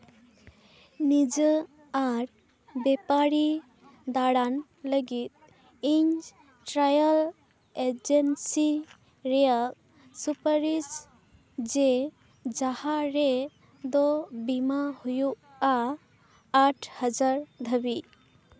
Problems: none marked